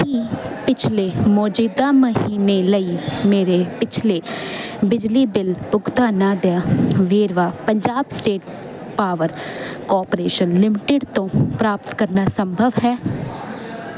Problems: constant background noise